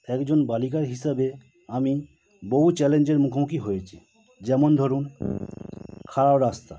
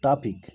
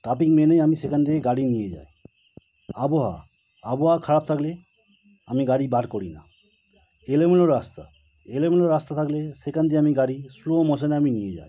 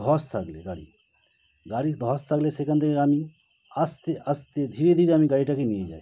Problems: constant background noise